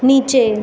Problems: constant background noise